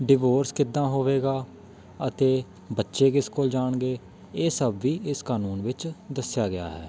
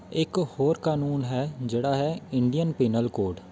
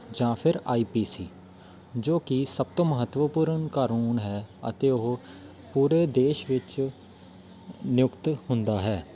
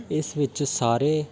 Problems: constant background noise, continuous background conversations